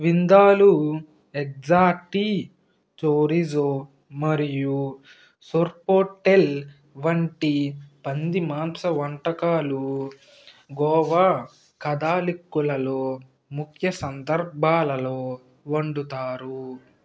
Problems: constant background noise